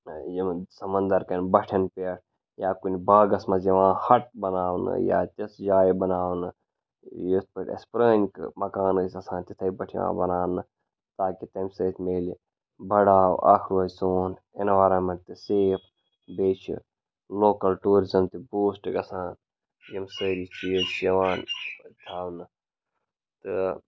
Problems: background sounds at intervals